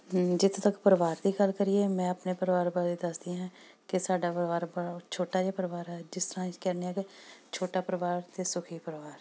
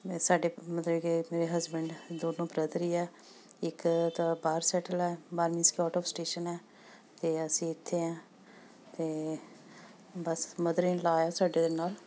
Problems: background sounds at intervals